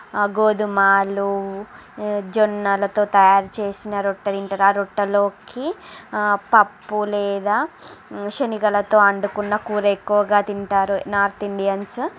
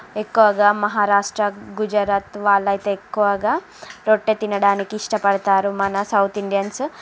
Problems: constant background noise, background conversations at intervals